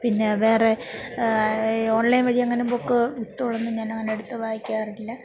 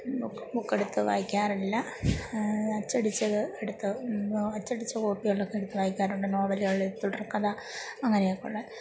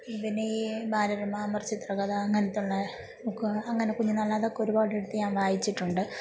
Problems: background sounds at intervals